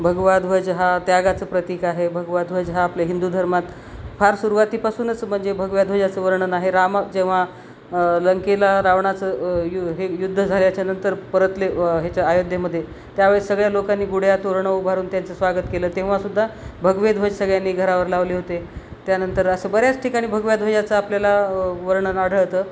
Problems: constant background noise